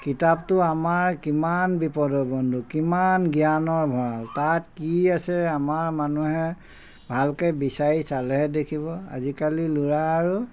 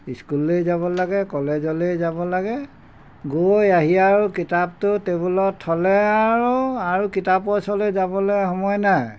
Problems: none marked